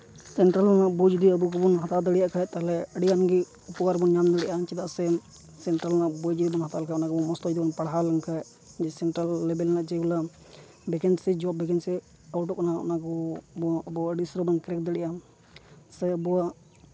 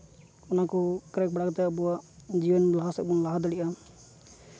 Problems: constant background noise